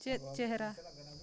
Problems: continuous background conversations